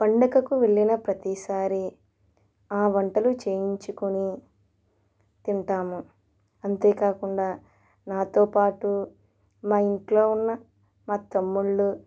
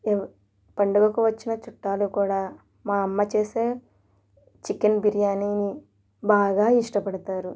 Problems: none marked